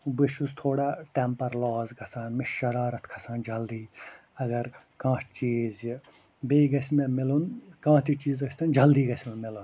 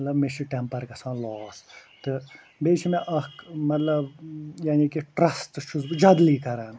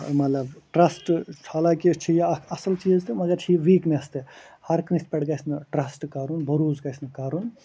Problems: constant background noise